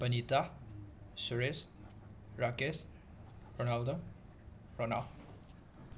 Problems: constant background noise